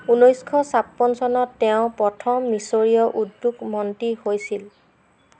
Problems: constant background noise